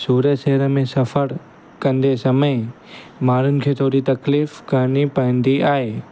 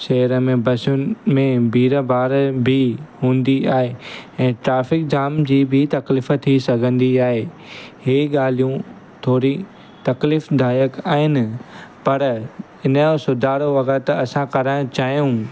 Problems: constant background noise